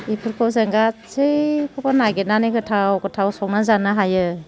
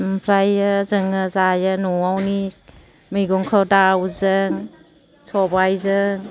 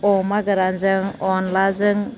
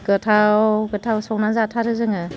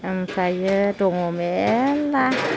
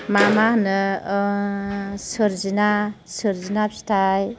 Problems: constant background noise, low volume